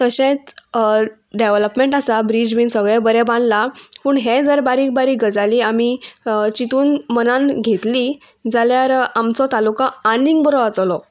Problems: none marked